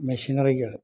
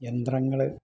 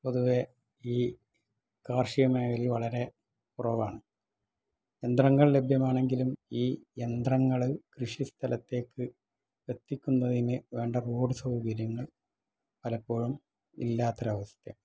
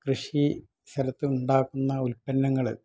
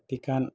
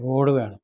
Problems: low volume